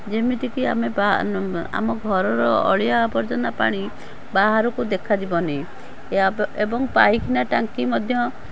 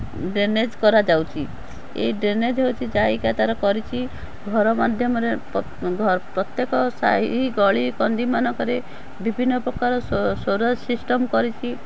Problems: background sounds at intervals